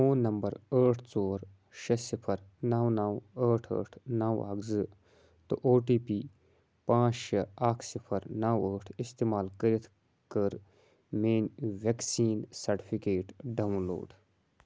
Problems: background sounds at intervals